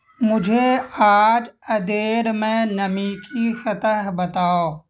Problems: constant background noise